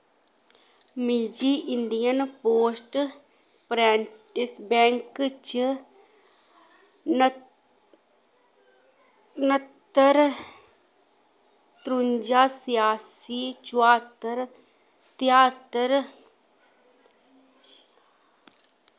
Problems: background sounds at intervals